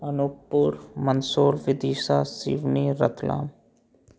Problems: none marked